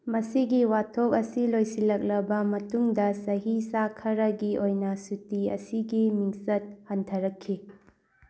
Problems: background sounds at intervals